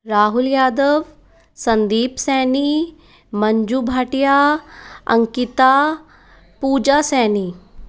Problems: none marked